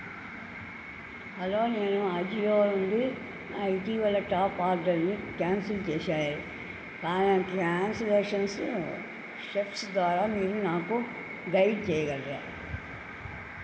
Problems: constant background noise, low volume